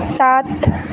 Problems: constant background noise